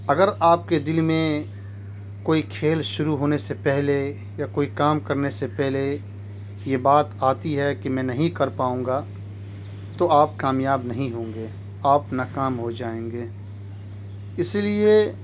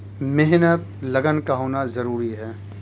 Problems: constant background noise